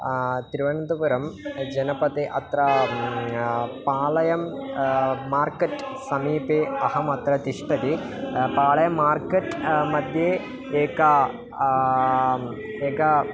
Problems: constant background noise, background conversations at intervals